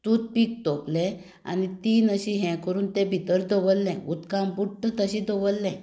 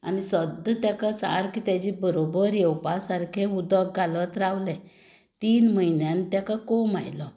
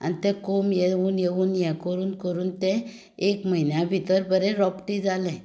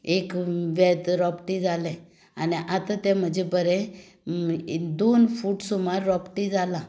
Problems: background sounds at intervals